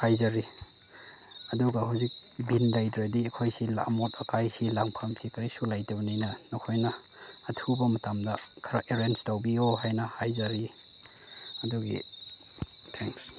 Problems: background sounds at intervals